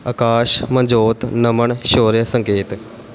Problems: background sounds at intervals